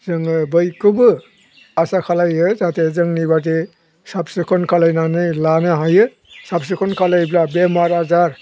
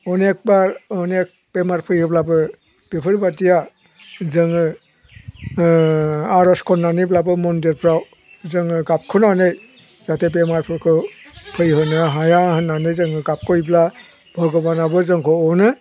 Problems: none marked